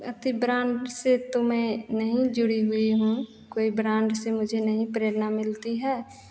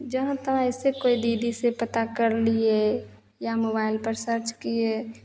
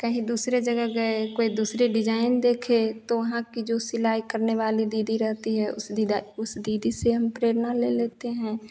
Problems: constant background noise, echo